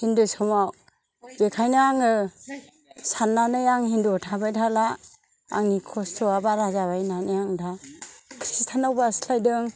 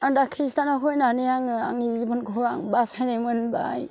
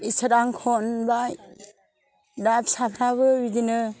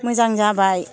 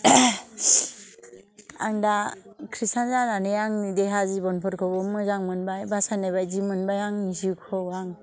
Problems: low volume